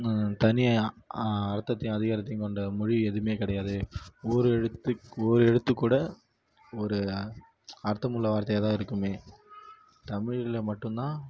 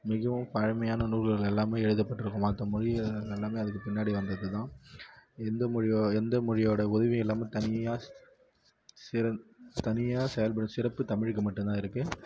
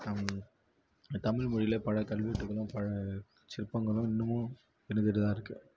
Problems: low volume